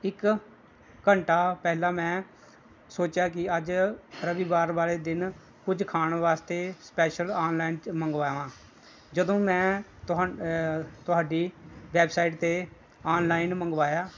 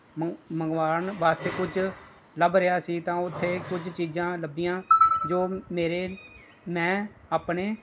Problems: background sounds at intervals